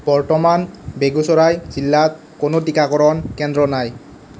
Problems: constant background noise